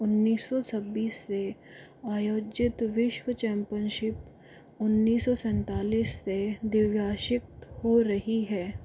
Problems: none marked